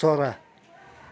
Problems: continuous background conversations